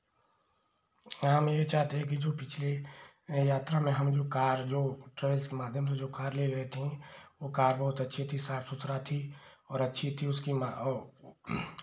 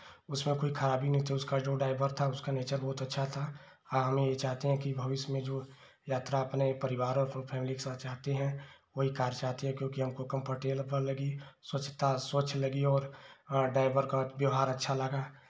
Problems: low volume